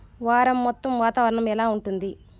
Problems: none marked